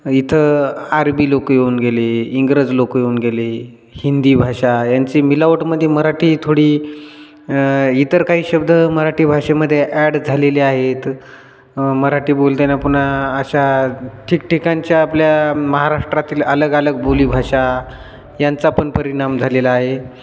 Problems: constant background noise, background conversations at intervals, echo